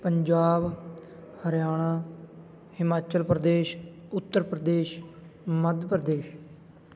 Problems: continuous background conversations